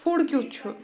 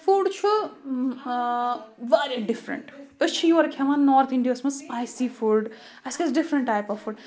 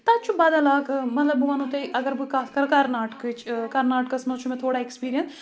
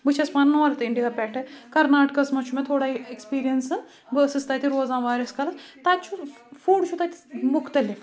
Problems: none marked